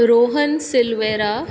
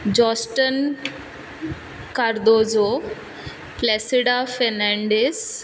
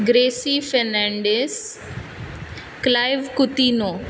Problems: background sounds at intervals